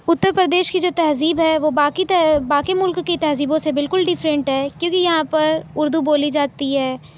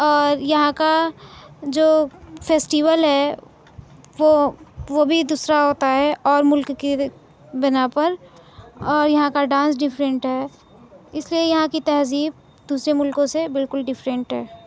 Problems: none marked